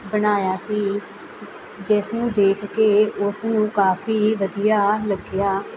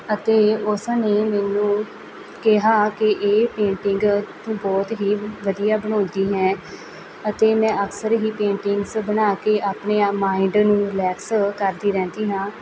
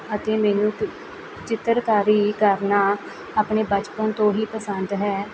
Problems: none marked